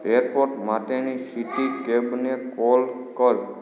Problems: background conversations at intervals